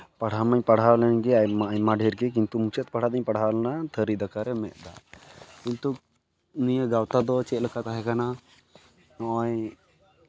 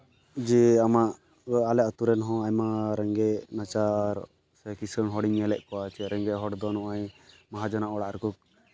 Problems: background sounds at intervals, background conversations at intervals